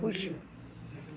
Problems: constant background noise, low volume